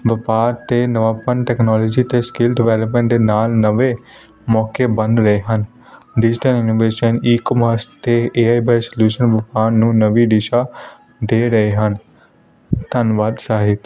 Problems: constant background noise